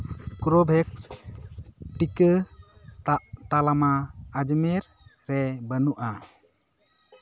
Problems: constant background noise, background conversations at intervals